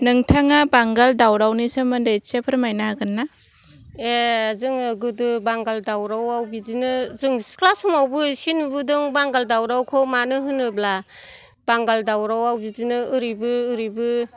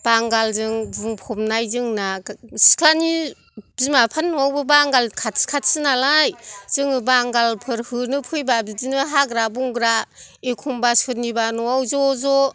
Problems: background sounds at intervals